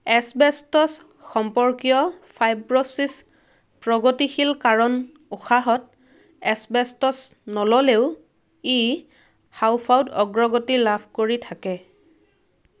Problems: none marked